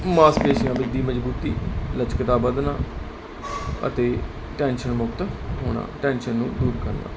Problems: constant background noise